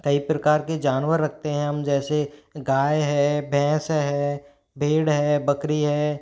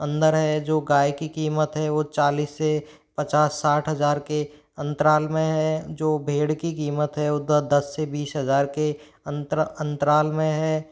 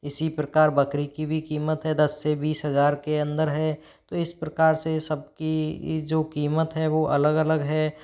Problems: background sounds at intervals